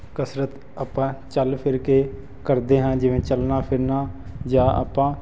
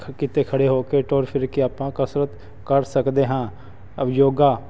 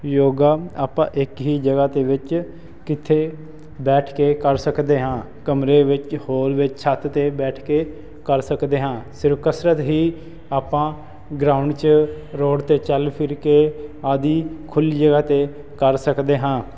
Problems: constant background noise